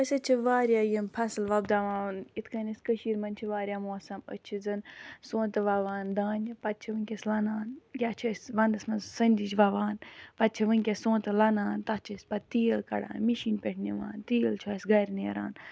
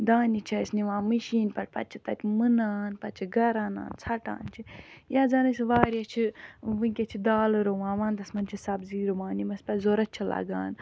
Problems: background sounds at intervals